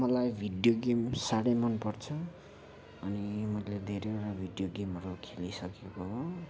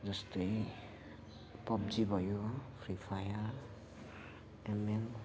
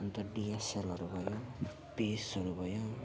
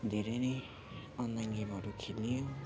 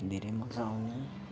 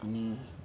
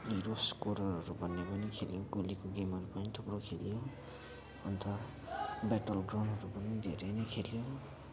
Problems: none marked